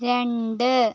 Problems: none marked